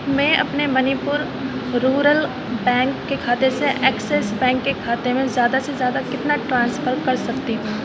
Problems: constant background noise, low volume